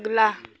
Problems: none marked